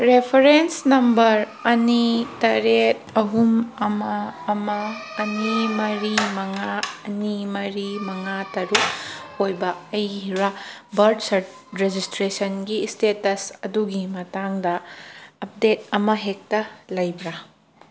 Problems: background sounds at intervals